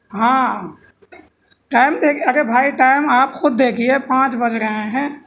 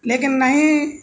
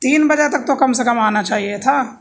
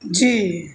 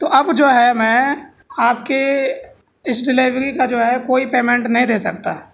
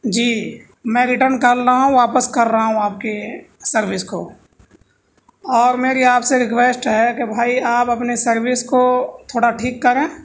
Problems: none marked